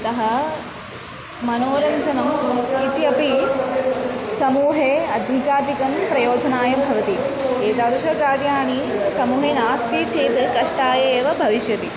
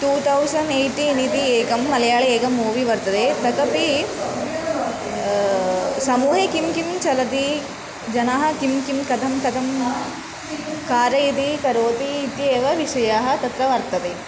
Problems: background sounds at intervals